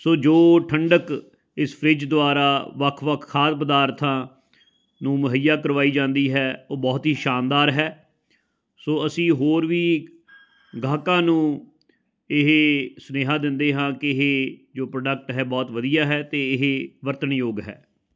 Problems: none marked